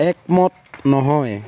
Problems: constant background noise, background conversations at intervals